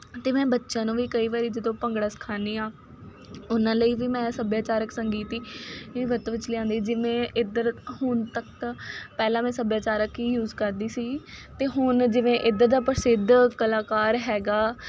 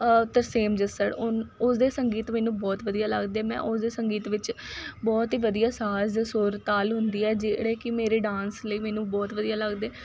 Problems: none marked